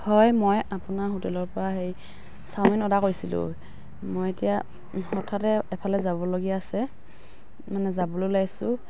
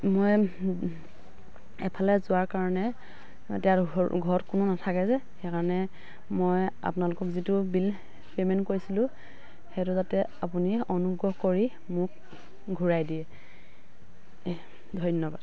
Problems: none marked